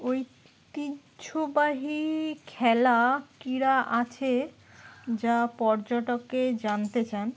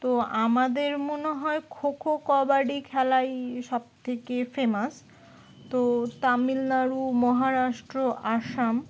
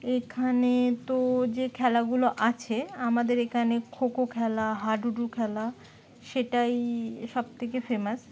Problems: none marked